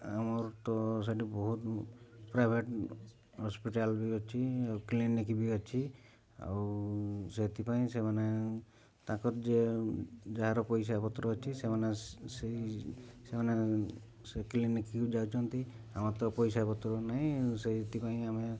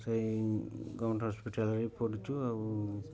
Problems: low volume